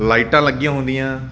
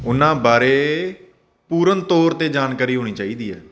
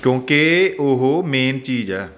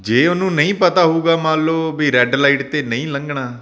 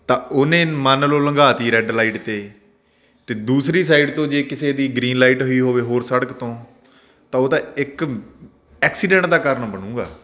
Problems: none marked